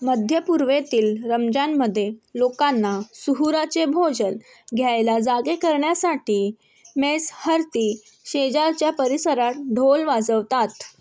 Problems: constant background noise